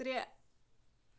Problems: background sounds at intervals